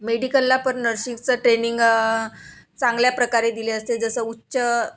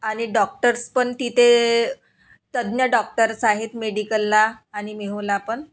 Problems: background sounds at intervals